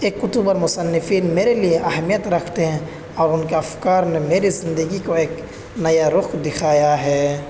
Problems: constant background noise, background conversations at intervals